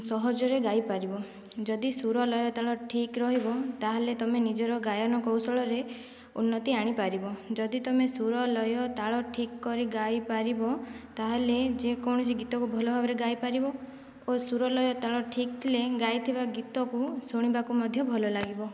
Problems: background sounds at intervals, low volume